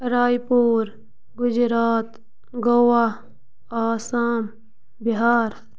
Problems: none marked